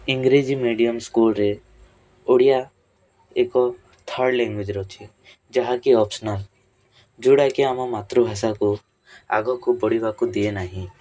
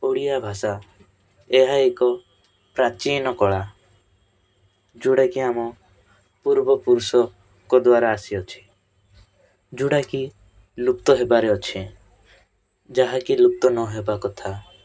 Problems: constant background noise, continuous background conversations